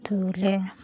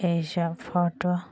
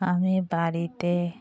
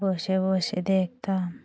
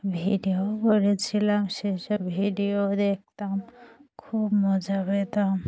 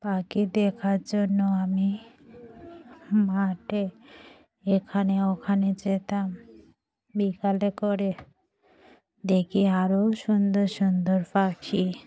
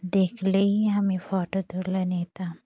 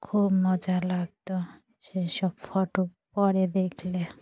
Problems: none marked